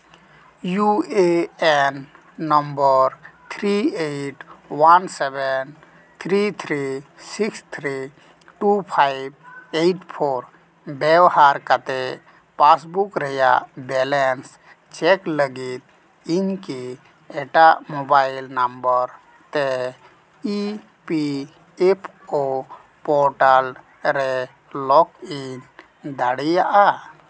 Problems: constant background noise